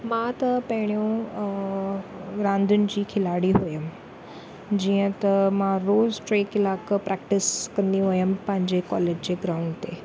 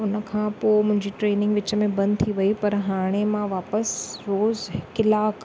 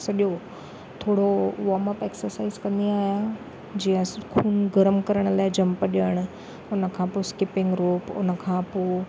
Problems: none marked